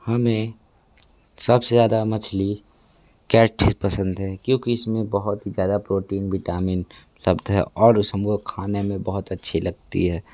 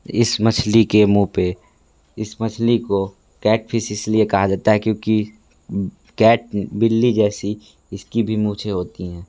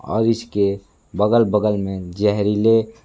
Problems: constant background noise